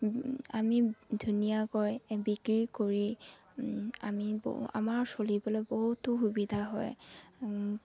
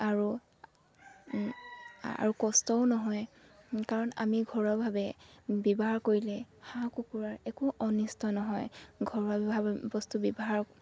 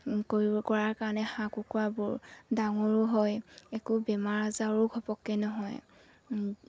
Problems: background sounds at intervals